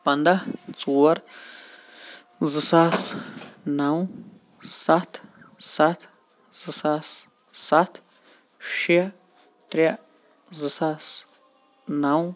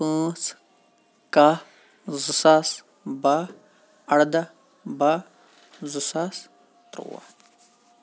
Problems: none marked